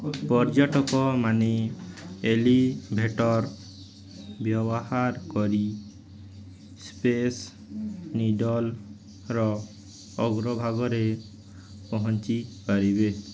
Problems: constant background noise, background conversations at intervals